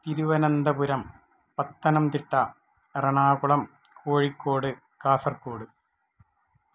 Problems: low volume